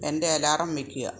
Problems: none marked